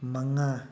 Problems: none marked